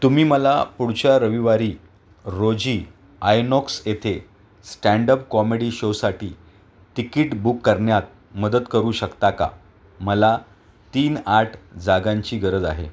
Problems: none marked